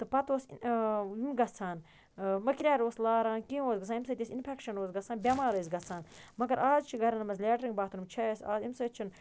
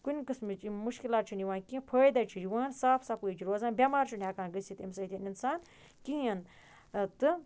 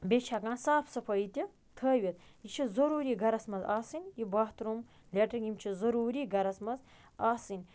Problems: background sounds at intervals